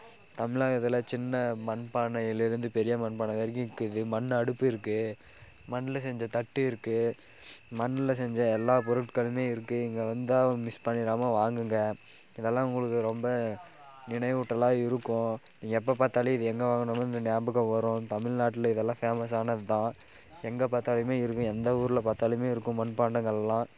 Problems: background conversations at intervals